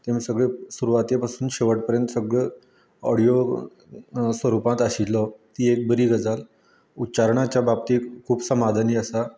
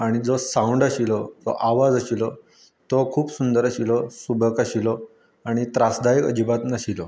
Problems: constant background noise